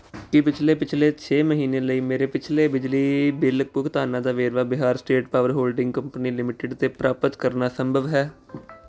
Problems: none marked